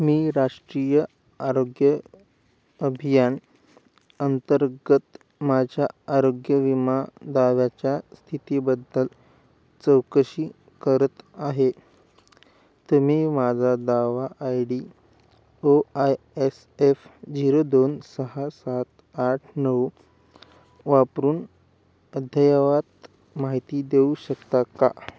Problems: none marked